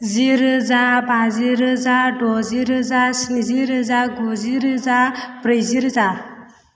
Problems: none marked